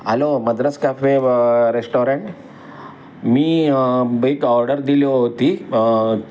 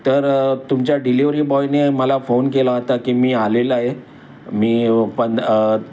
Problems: constant background noise, background conversations at intervals